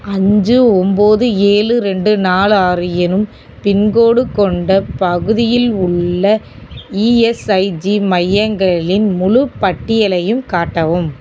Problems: constant background noise